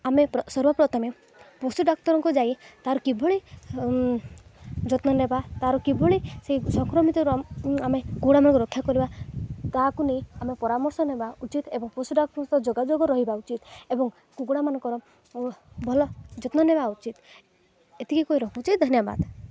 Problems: none marked